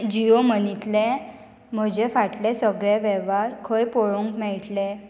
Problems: none marked